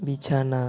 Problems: none marked